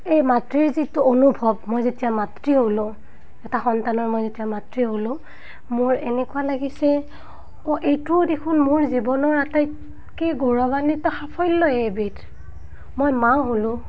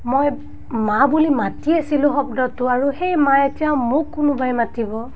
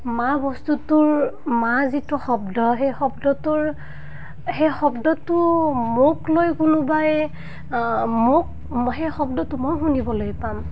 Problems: none marked